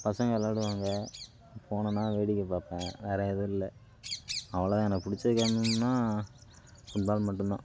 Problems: constant background noise